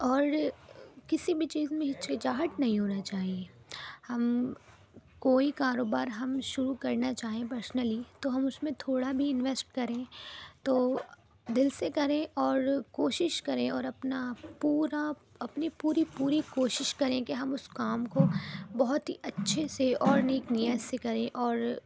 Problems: background sounds at intervals